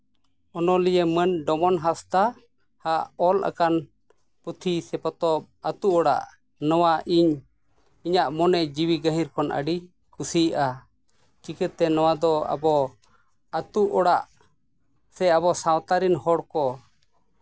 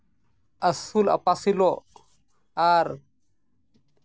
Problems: none marked